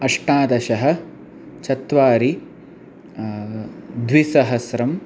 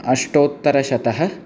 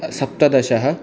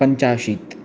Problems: constant background noise